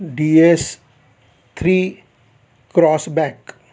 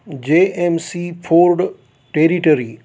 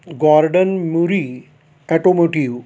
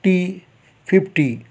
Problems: constant background noise